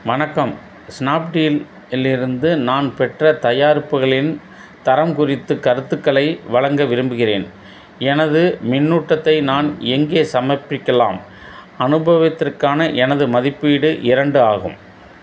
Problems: none marked